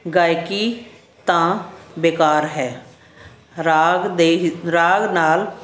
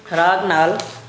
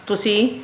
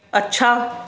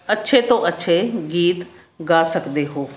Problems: constant background noise